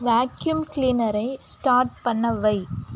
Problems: constant background noise